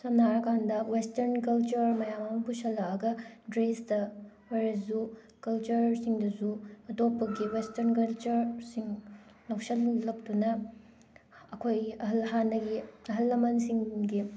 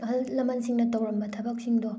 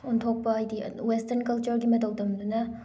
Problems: background sounds at intervals